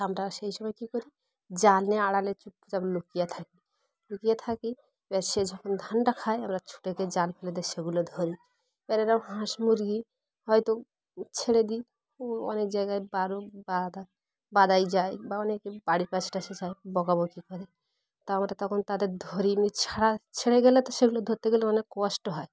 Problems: constant background noise